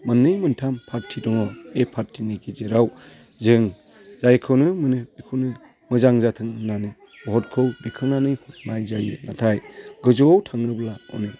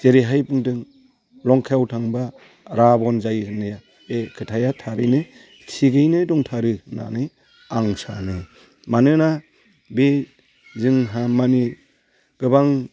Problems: constant background noise